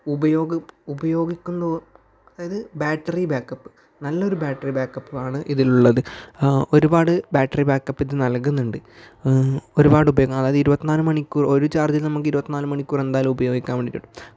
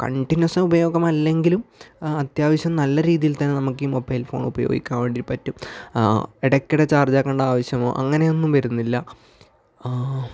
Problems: none marked